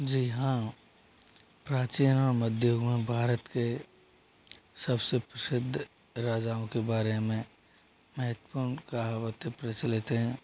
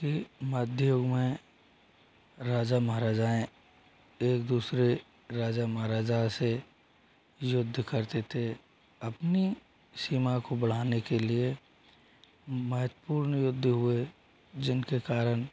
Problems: constant background noise